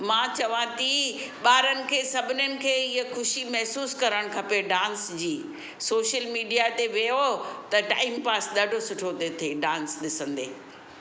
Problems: constant background noise